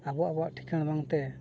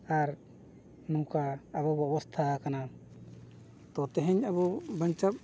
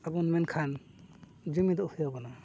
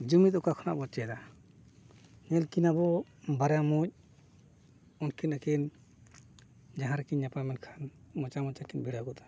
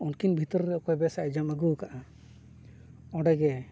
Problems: none marked